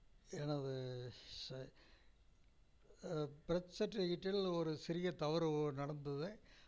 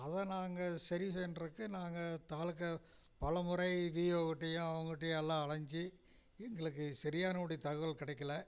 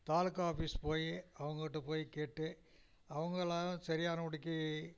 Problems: low volume